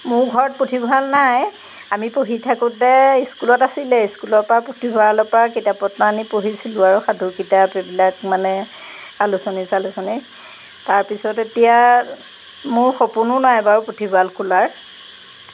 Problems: background sounds at intervals